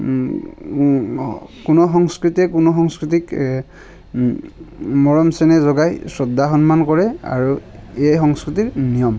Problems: constant background noise